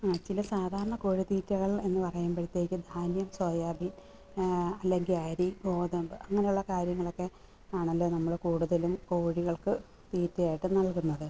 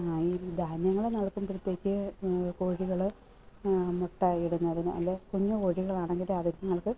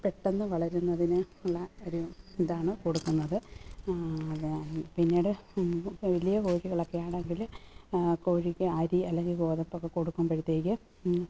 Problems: background sounds at intervals